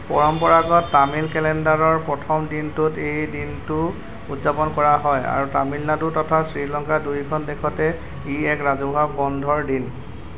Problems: constant background noise